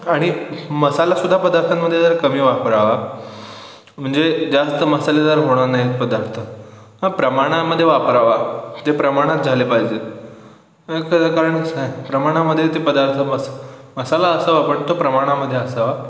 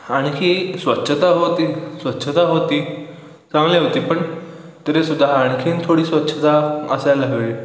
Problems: background sounds at intervals